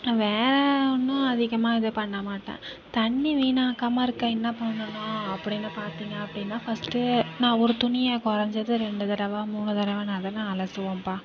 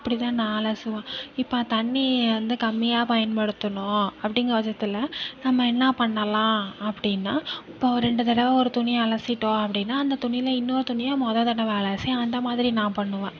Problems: none marked